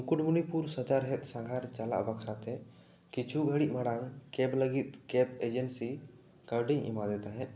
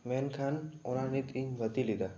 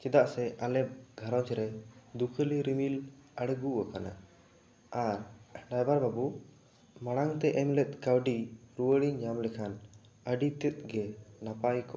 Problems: none marked